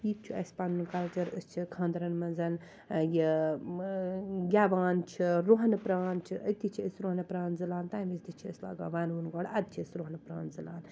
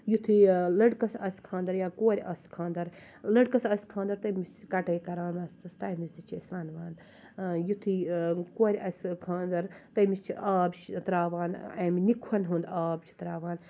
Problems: constant background noise, low volume